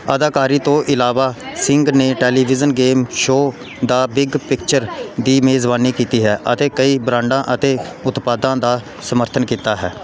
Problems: background conversations at intervals